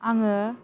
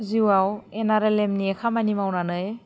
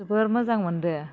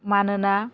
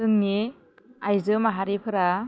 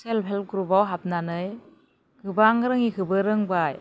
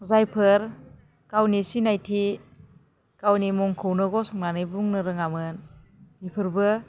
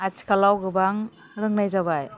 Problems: constant background noise